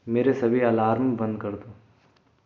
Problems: constant background noise, echo